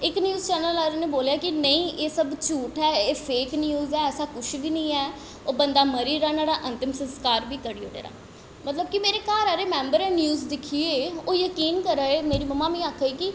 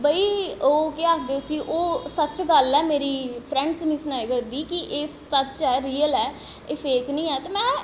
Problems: constant background noise, echo